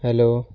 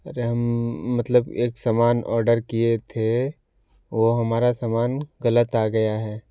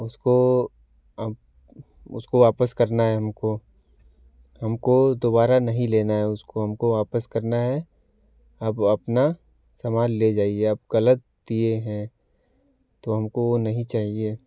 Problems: none marked